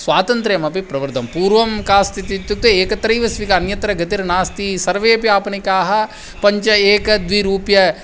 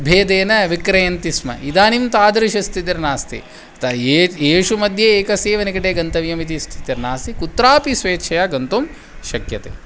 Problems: background sounds at intervals